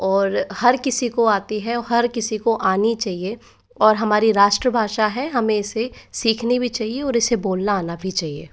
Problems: none marked